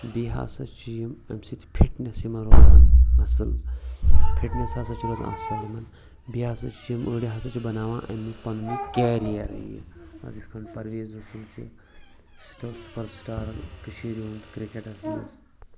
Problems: constant background noise, background conversations at intervals